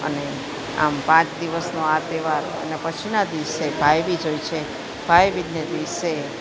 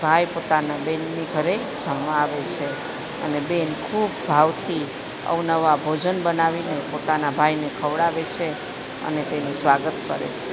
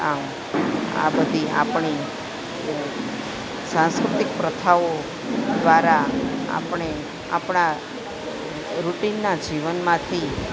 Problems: constant background noise